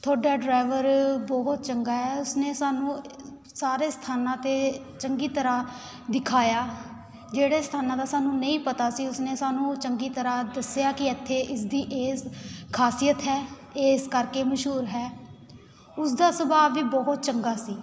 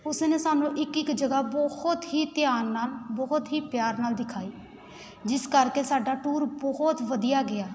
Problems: constant background noise, continuous background conversations